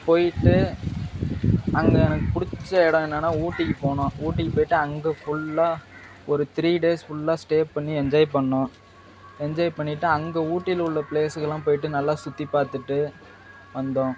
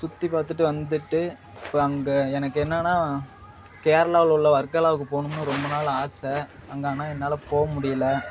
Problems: background sounds at intervals